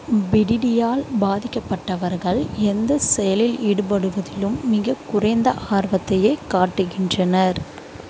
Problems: constant background noise